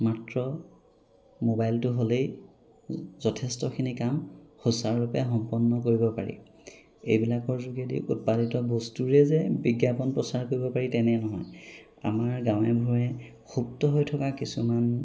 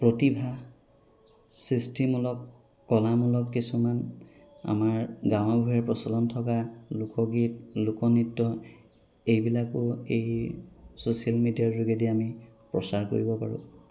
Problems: background sounds at intervals